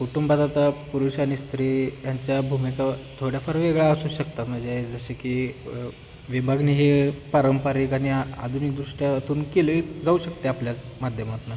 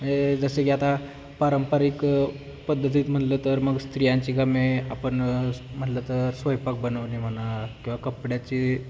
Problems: constant background noise, background conversations at intervals